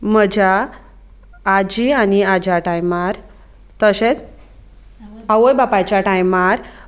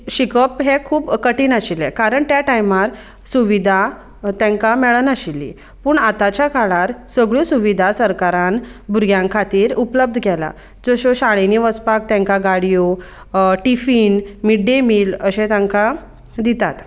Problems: none marked